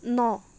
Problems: constant background noise